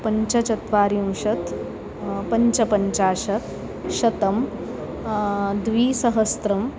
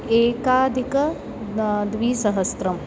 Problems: constant background noise, continuous background conversations